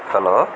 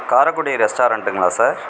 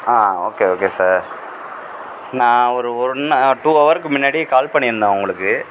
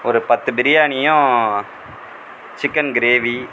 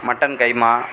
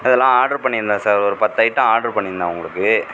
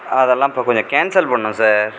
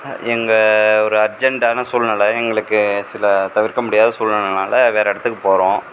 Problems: background sounds at intervals